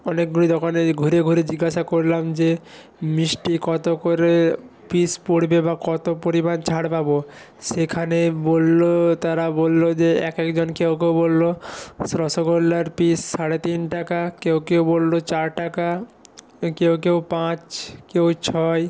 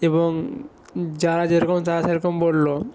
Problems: continuous background conversations